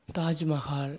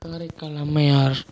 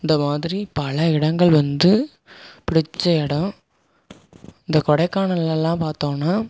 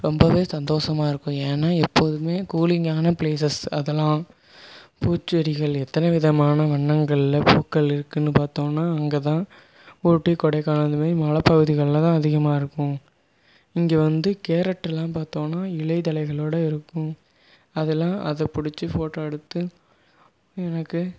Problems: background sounds at intervals